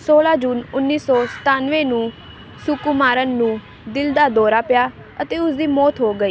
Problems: none marked